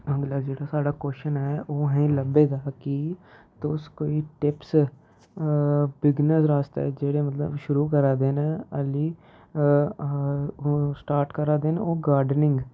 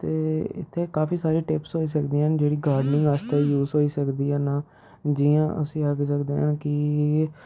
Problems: none marked